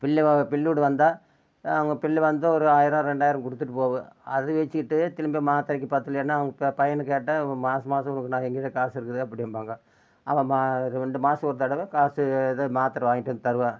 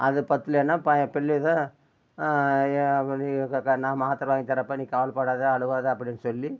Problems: constant background noise